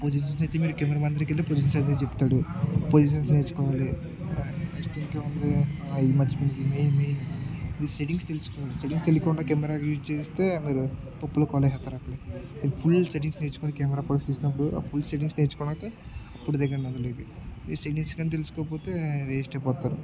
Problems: continuous background conversations, low volume